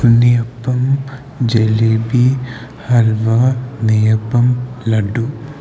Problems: constant background noise